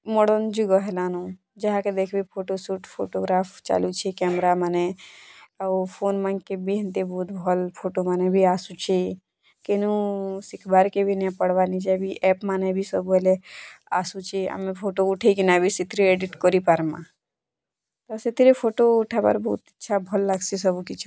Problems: none marked